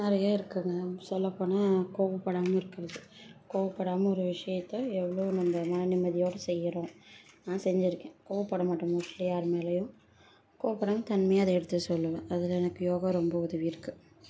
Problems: low volume